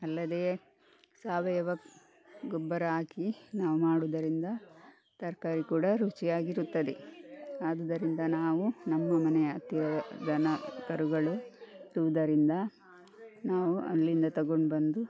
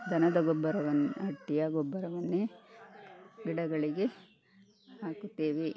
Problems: background sounds at intervals